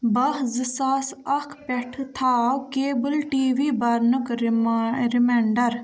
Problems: background sounds at intervals